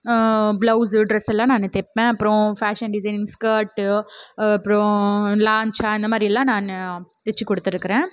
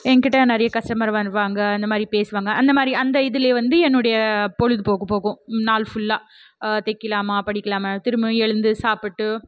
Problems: none marked